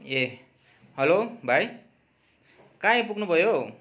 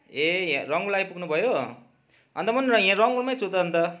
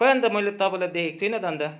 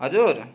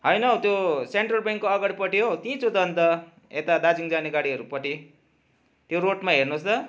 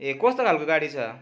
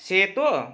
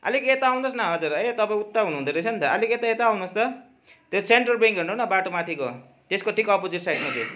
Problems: none marked